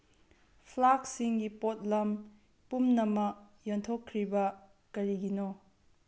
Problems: background sounds at intervals